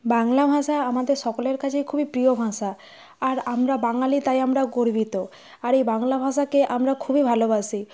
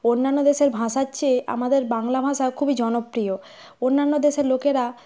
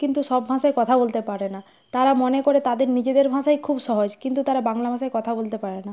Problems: none marked